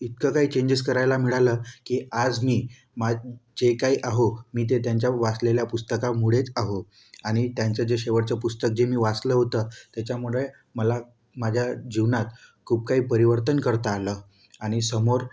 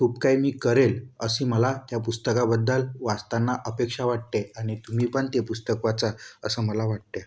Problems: none marked